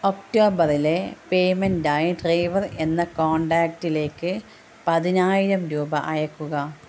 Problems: low volume